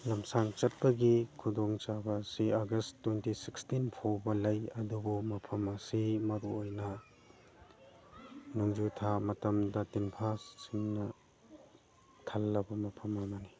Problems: background sounds at intervals, background conversations at intervals